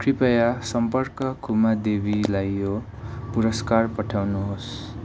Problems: background sounds at intervals